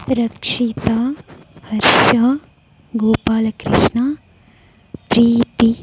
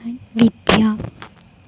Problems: echo